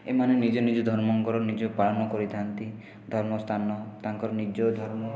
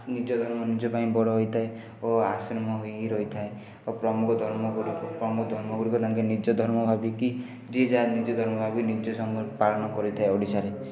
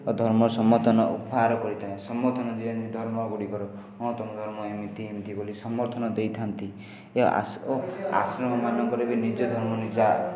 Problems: background sounds at intervals, continuous background conversations